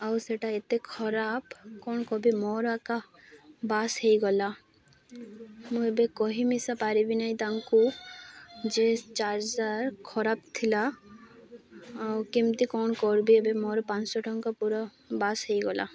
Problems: none marked